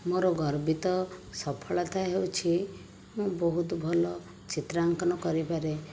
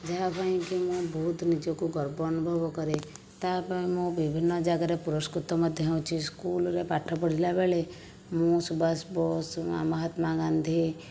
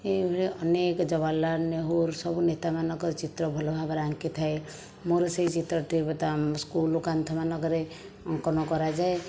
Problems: background sounds at intervals